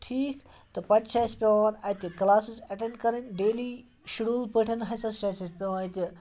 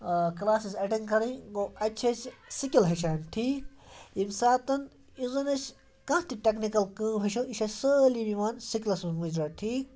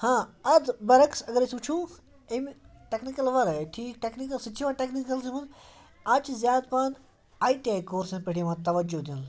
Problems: background sounds at intervals